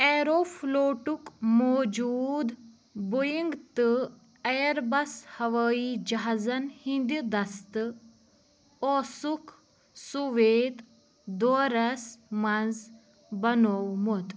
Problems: background sounds at intervals